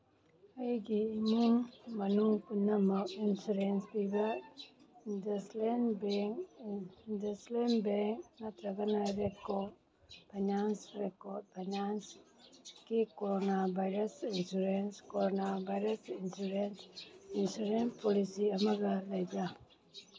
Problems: background sounds at intervals